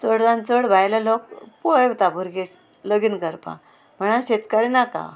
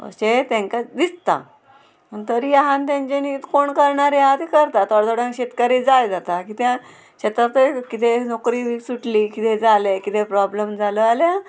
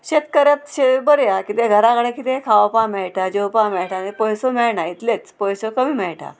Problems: constant background noise